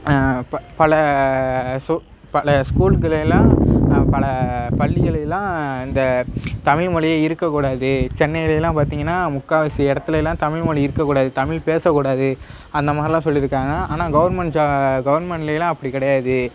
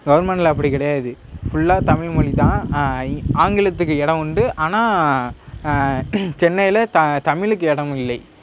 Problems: background sounds at intervals, background conversations at intervals